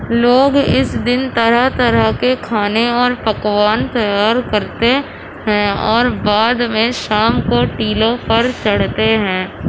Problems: constant background noise